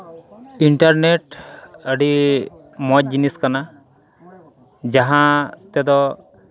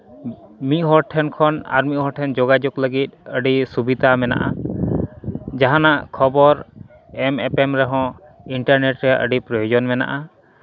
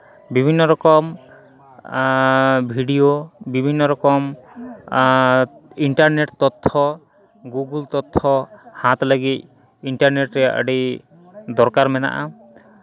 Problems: background sounds at intervals